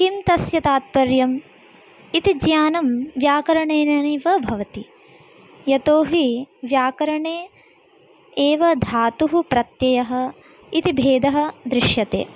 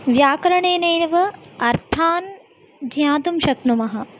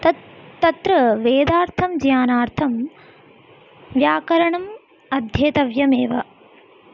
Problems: none marked